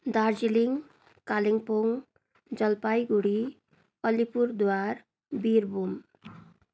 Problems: continuous background conversations